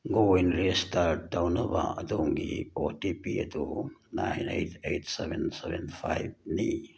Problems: none marked